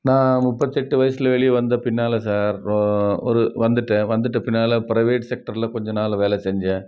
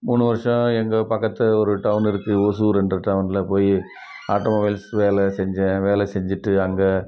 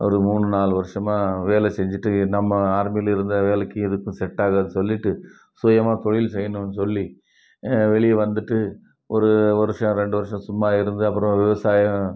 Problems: background sounds at intervals, continuous background conversations